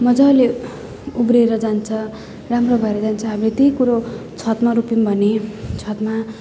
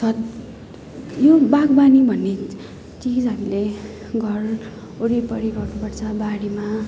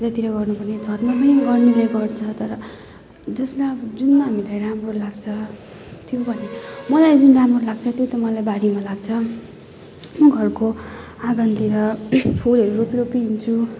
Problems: none marked